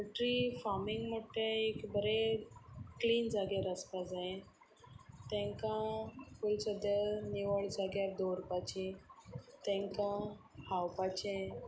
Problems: none marked